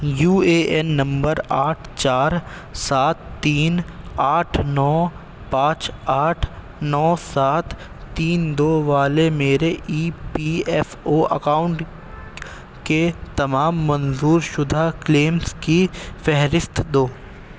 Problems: constant background noise